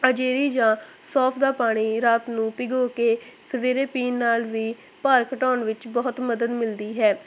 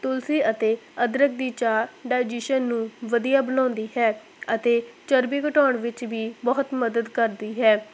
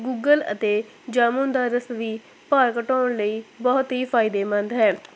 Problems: none marked